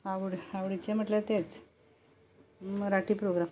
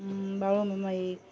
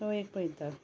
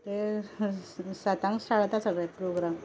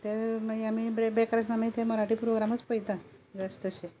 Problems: none marked